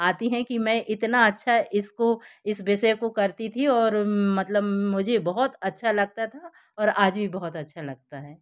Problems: background sounds at intervals